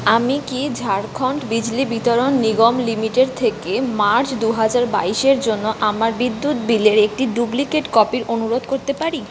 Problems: none marked